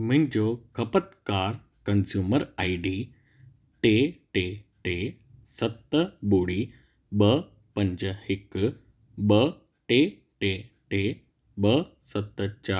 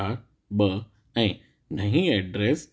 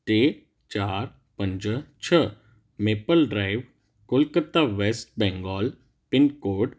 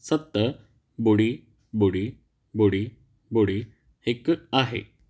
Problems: none marked